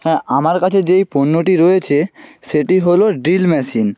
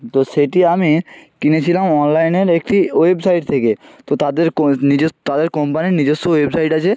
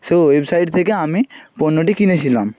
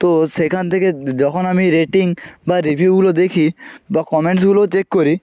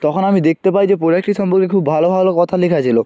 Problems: none marked